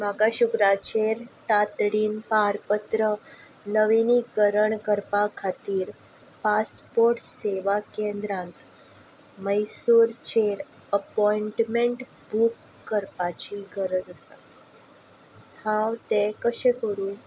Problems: none marked